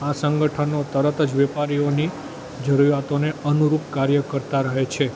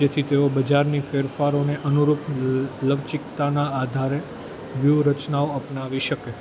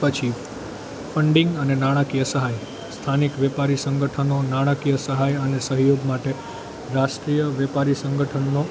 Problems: constant background noise